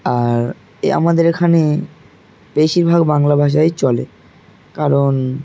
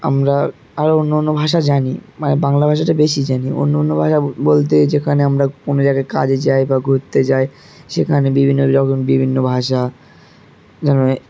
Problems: constant background noise, background conversations at intervals